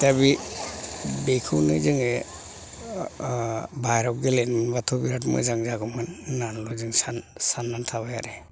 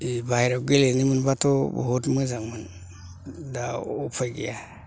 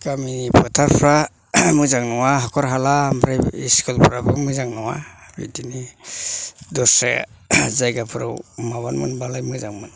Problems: low volume